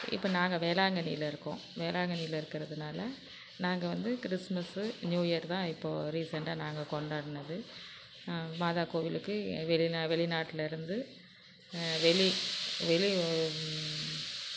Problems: constant background noise